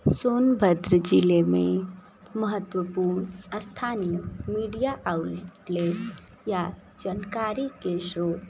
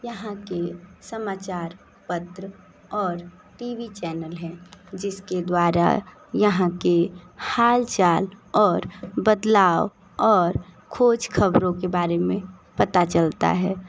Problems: none marked